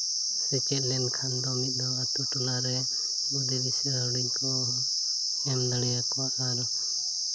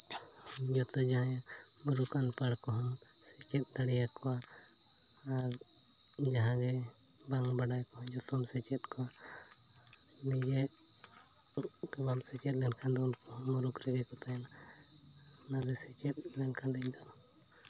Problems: constant background noise, low volume